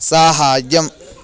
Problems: constant background noise, continuous background conversations